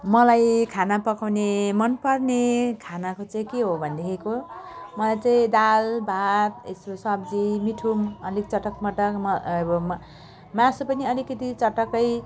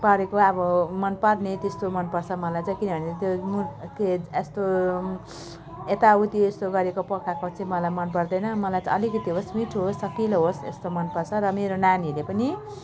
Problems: continuous background conversations